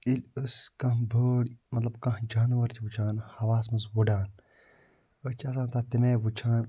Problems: low volume